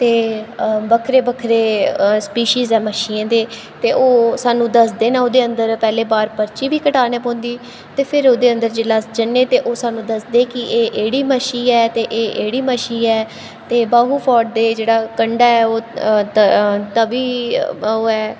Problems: constant background noise, echo